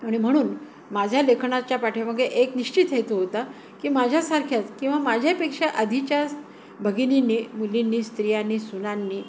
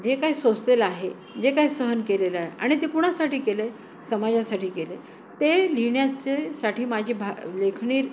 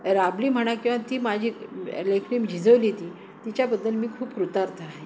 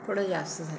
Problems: constant background noise, background conversations at intervals